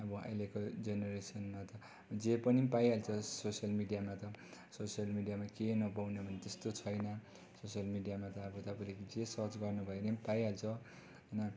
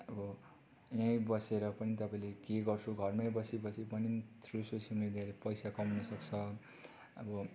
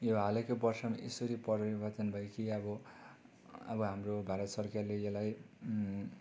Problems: low volume